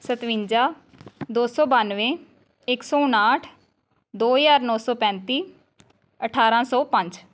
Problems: none marked